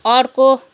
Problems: none marked